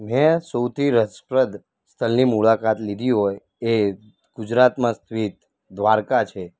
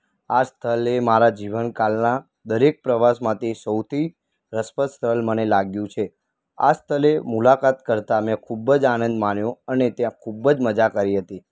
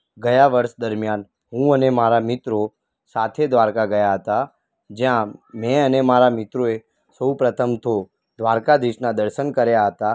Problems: background sounds at intervals